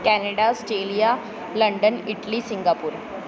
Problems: background sounds at intervals